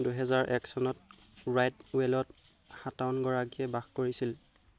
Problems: constant background noise